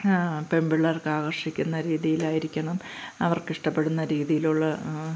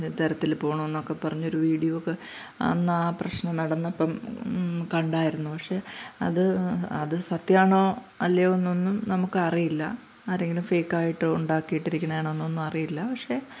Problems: none marked